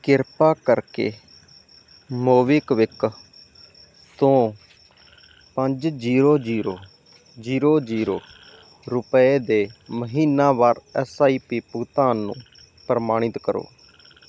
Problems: none marked